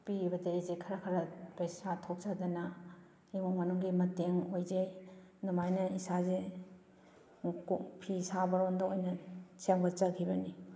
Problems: background sounds at intervals